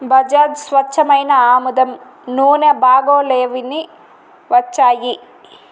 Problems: constant background noise